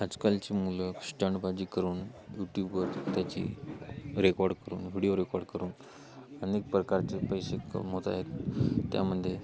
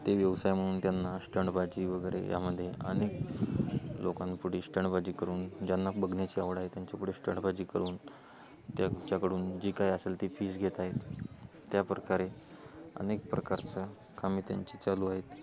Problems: none marked